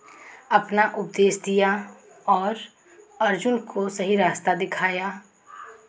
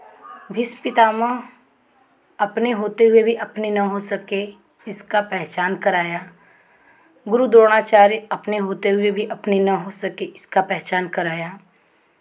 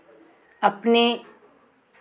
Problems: constant background noise